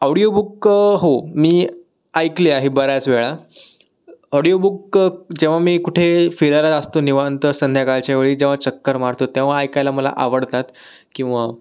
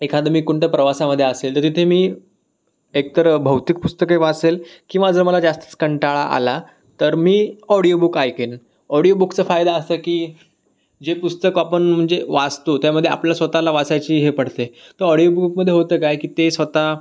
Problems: none marked